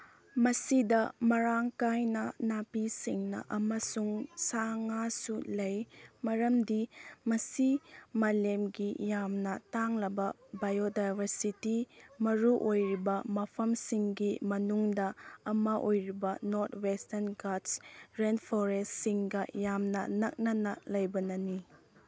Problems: none marked